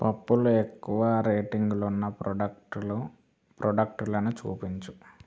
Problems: background sounds at intervals